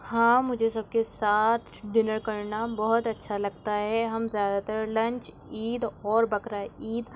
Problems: background sounds at intervals